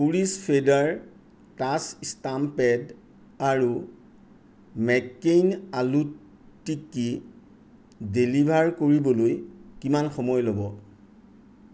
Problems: none marked